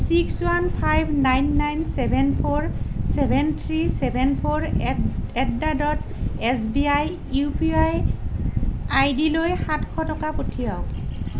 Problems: none marked